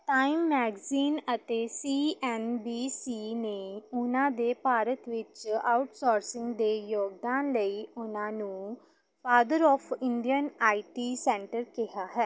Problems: background sounds at intervals